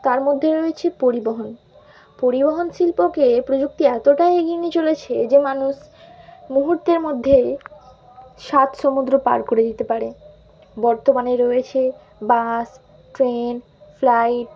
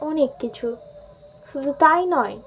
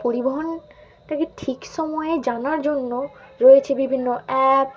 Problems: constant background noise, continuous background conversations